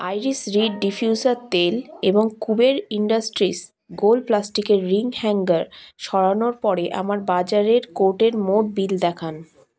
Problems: background sounds at intervals